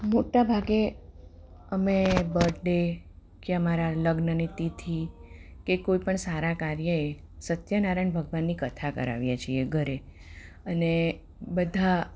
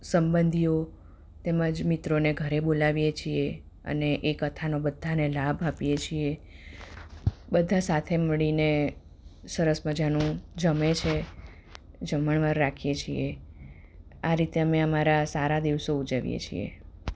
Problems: none marked